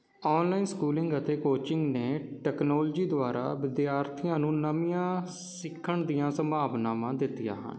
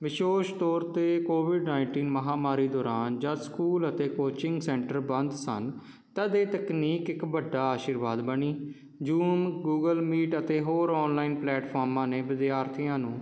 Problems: none marked